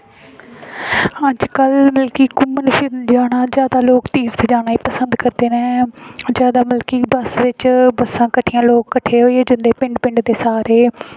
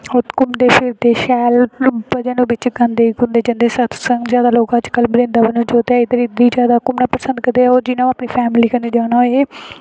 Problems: background sounds at intervals